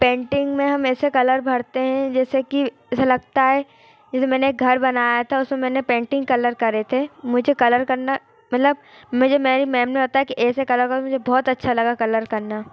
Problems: constant background noise, continuous background conversations